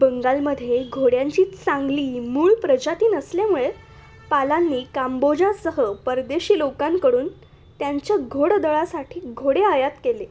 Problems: none marked